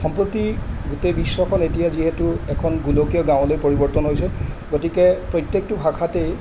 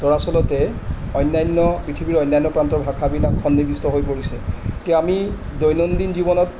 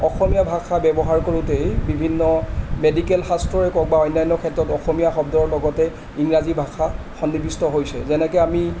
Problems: constant background noise